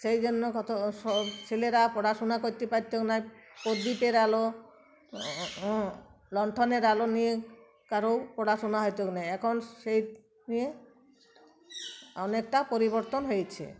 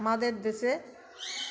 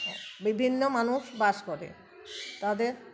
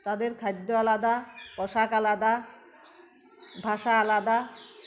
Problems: constant background noise